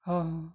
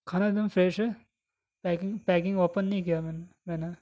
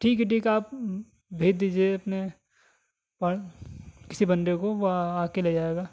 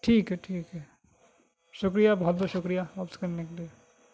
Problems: none marked